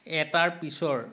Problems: none marked